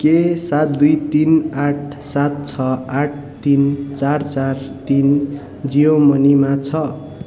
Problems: constant background noise